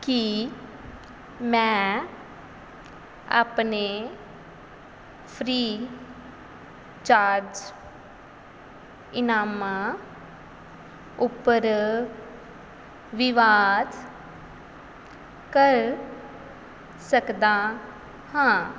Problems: background sounds at intervals